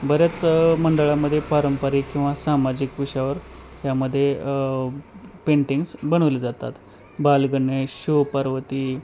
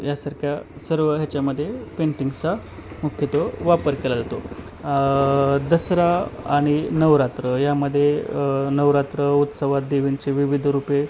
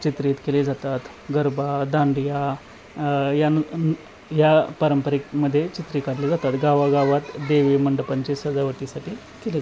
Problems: constant background noise, background conversations at intervals